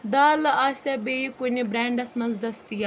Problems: constant background noise